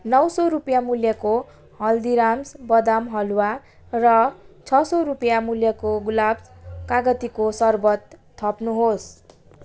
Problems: none marked